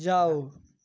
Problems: background sounds at intervals